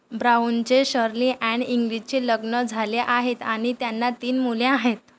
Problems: none marked